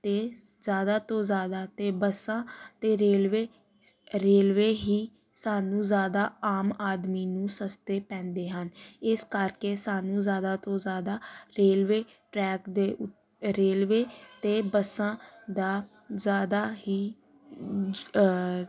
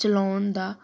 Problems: none marked